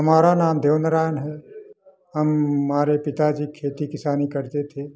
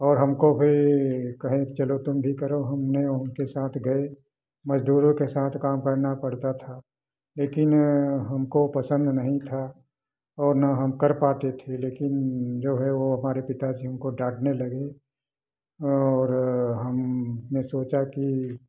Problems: background sounds at intervals